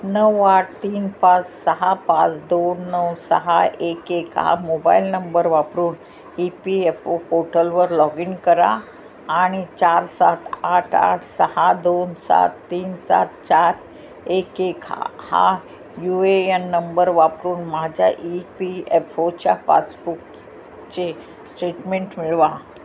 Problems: none marked